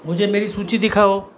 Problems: none marked